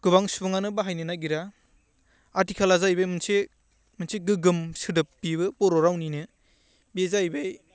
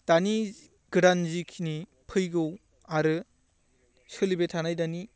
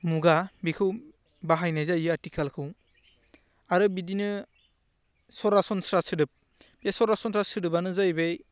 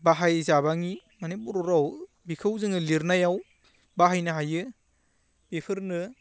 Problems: constant background noise